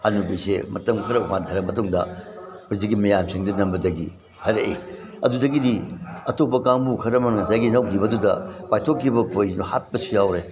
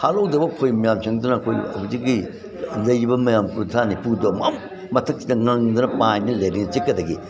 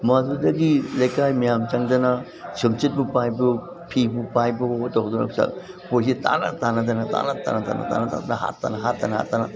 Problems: background sounds at intervals